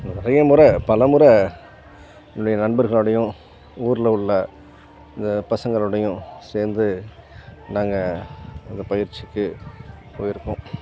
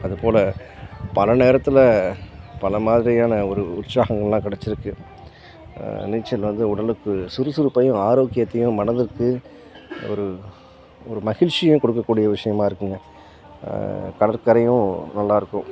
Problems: background sounds at intervals, background conversations at intervals